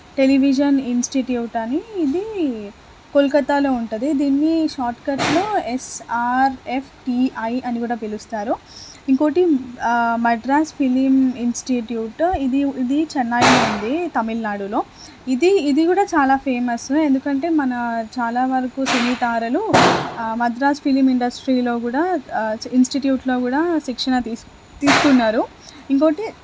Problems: constant background noise